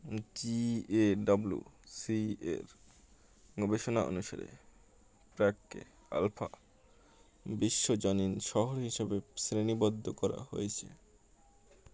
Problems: constant background noise